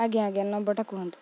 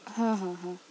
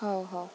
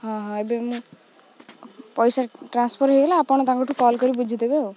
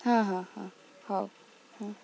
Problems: none marked